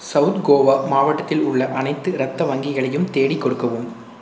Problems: none marked